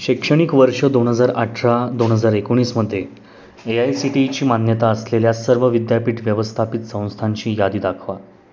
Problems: none marked